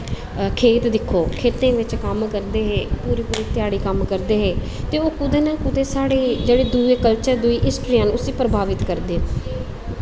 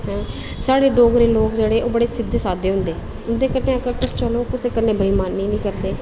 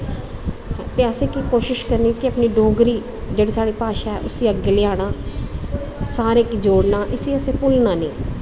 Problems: constant background noise